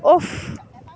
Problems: background conversations at intervals